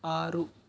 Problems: none marked